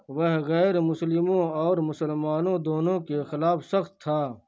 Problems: constant background noise